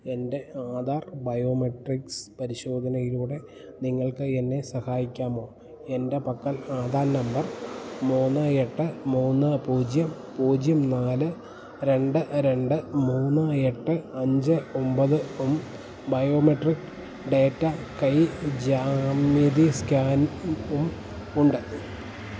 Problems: background sounds at intervals